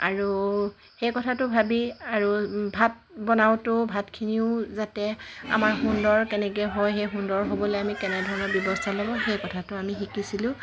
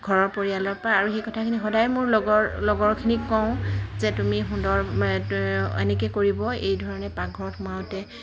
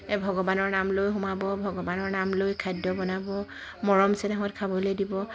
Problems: constant background noise